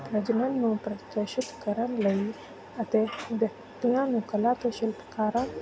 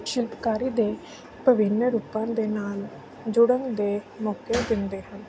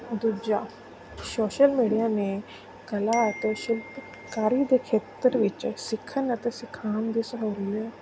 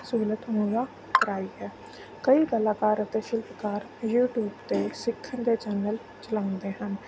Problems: none marked